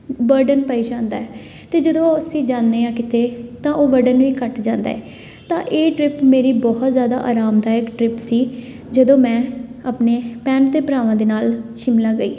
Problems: constant background noise